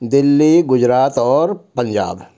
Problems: constant background noise